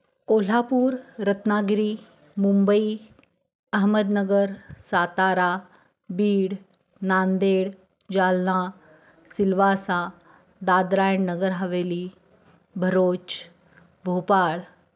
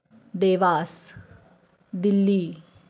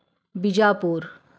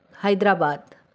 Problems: none marked